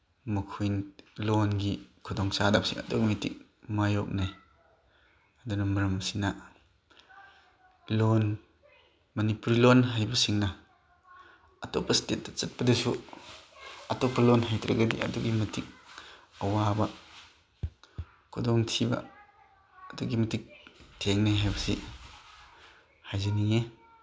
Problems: background sounds at intervals, background conversations at intervals